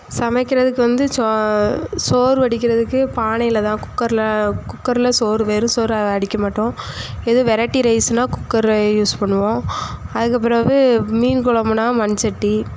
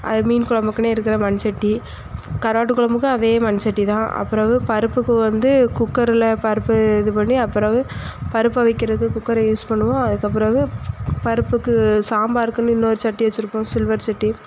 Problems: none marked